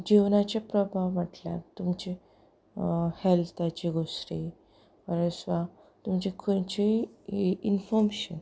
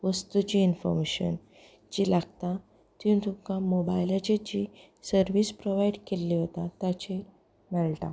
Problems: background sounds at intervals, background conversations at intervals